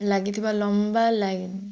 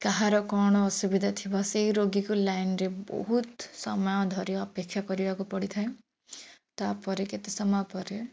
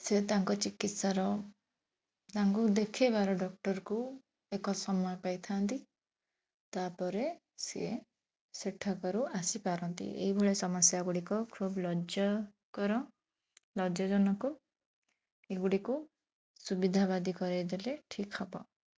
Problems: none marked